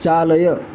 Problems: background sounds at intervals